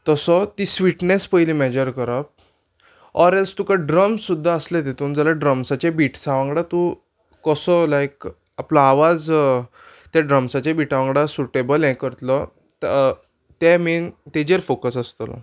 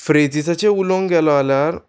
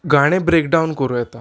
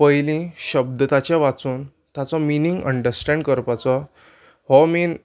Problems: background sounds at intervals